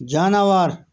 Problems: none marked